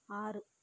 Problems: low volume